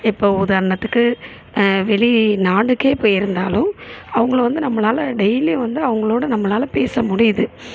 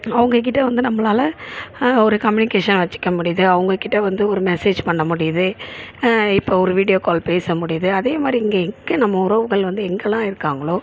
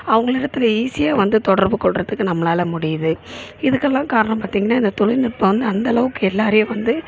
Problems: constant background noise